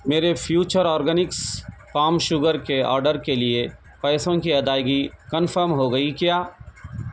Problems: none marked